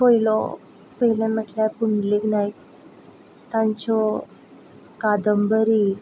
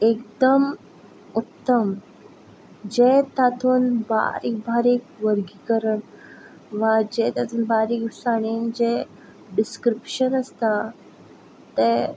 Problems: constant background noise